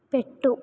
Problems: none marked